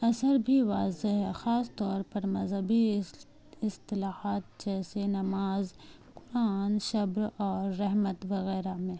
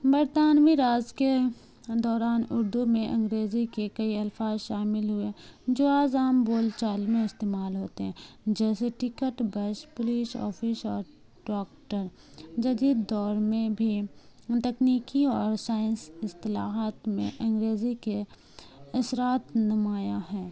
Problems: constant background noise